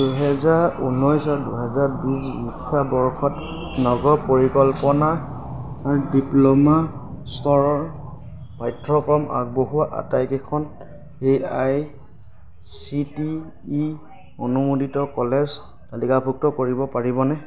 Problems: background sounds at intervals, background conversations at intervals